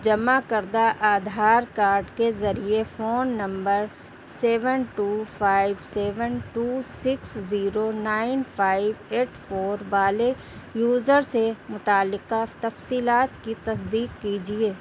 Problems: none marked